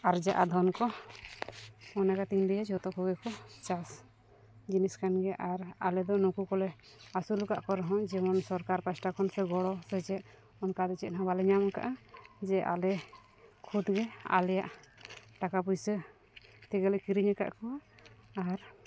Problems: none marked